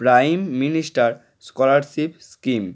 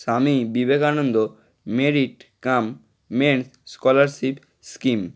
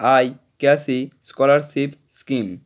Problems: none marked